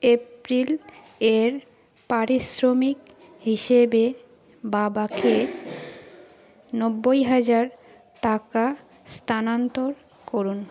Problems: none marked